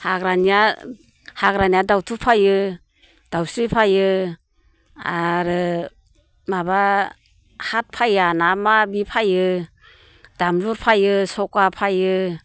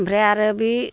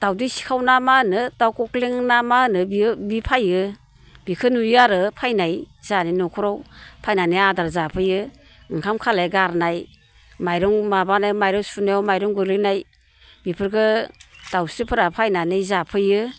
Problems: constant background noise